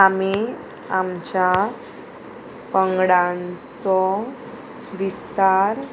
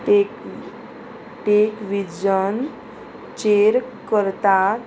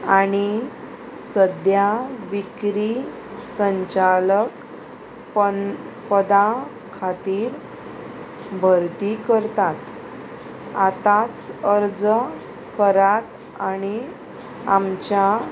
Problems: constant background noise